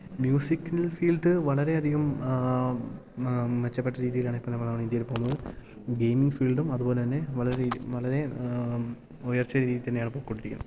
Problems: low volume